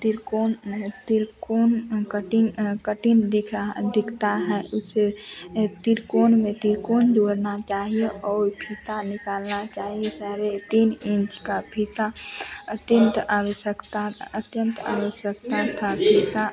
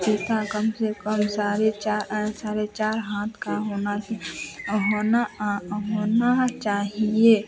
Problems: constant background noise